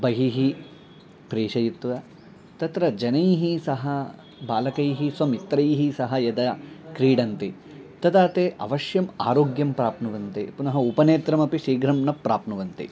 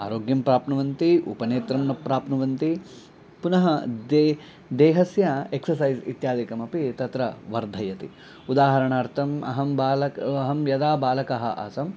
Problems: none marked